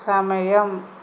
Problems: constant background noise